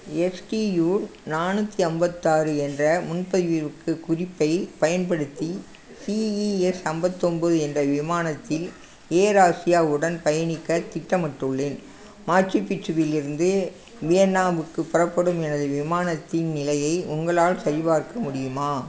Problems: constant background noise